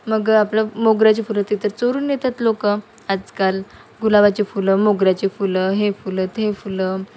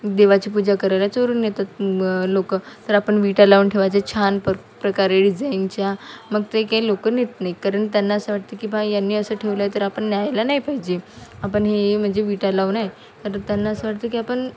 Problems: constant background noise, continuous background conversations